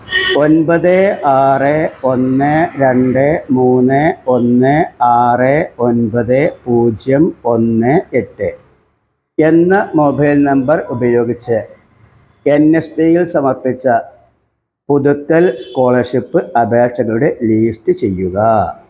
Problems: background sounds at intervals